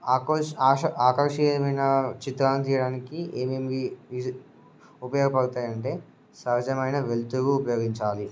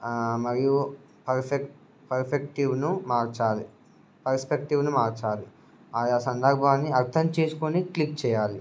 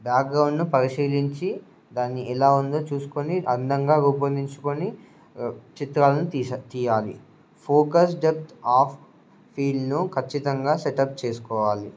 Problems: none marked